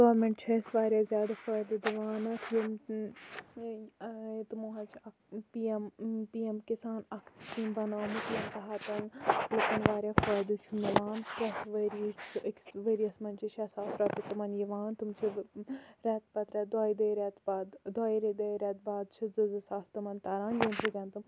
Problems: none marked